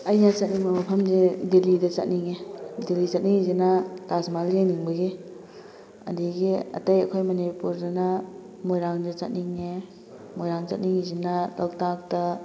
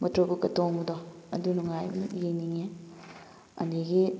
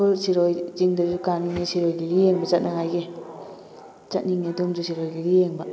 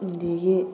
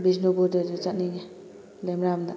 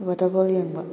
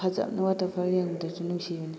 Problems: background sounds at intervals, background conversations at intervals